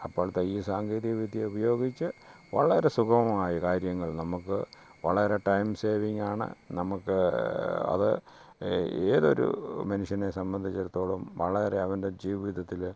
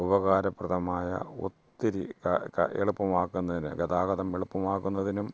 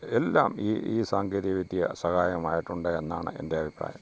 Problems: low volume